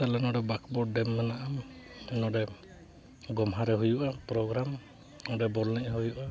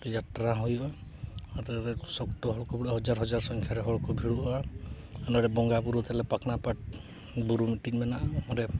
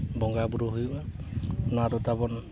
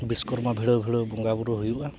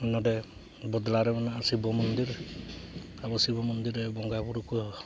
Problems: constant background noise, background conversations at intervals